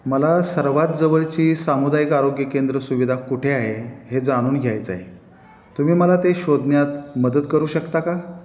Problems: none marked